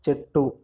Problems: background sounds at intervals